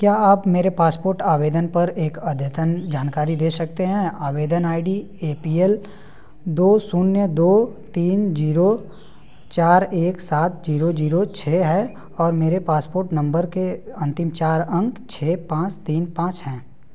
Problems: background sounds at intervals